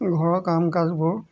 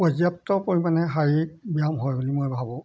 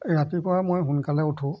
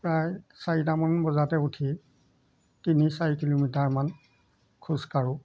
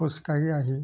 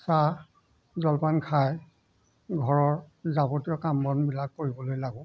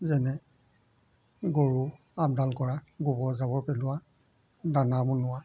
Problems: background sounds at intervals